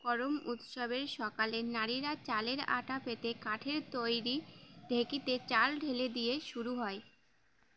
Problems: constant background noise